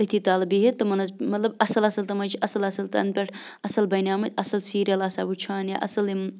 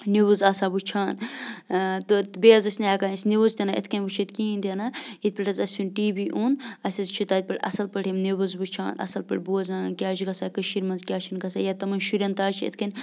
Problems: constant background noise